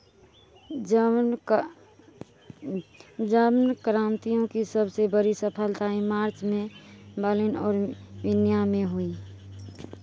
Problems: none marked